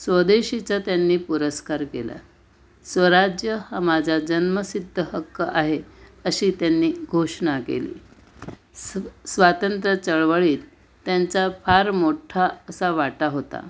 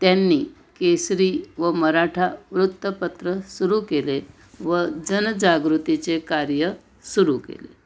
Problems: constant background noise